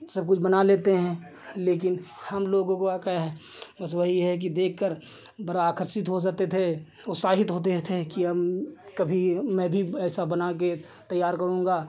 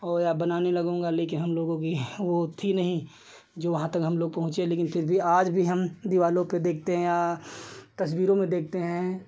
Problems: none marked